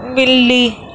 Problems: constant background noise